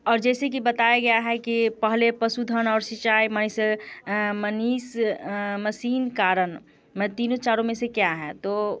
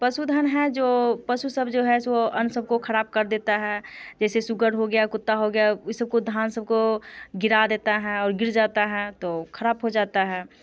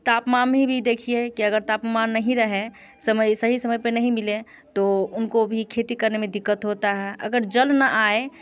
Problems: constant background noise